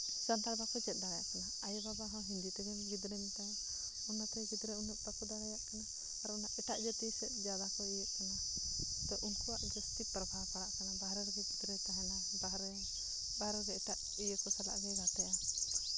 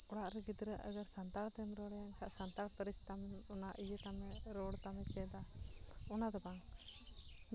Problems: none marked